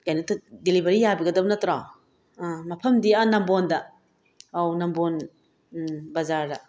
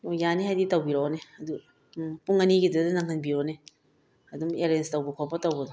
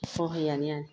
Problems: none marked